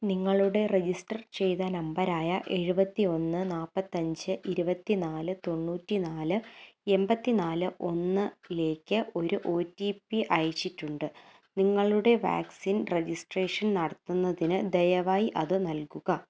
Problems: none marked